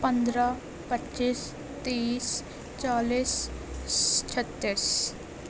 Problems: constant background noise, low volume